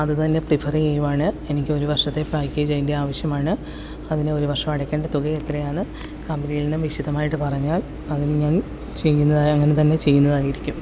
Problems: none marked